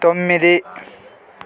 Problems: constant background noise